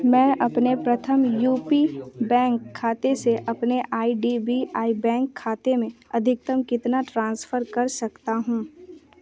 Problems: background sounds at intervals, continuous background conversations